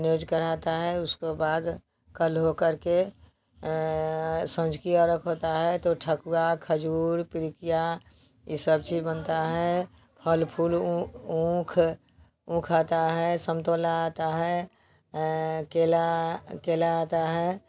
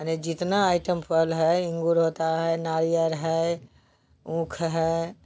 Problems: constant background noise